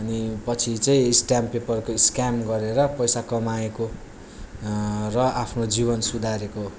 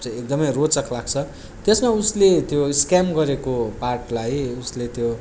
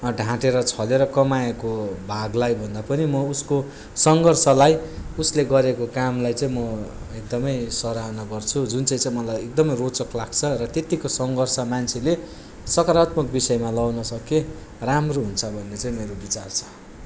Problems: background sounds at intervals